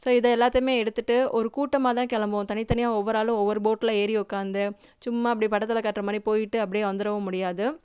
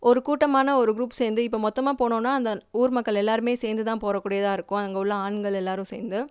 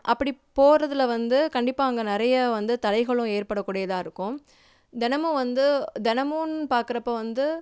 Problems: none marked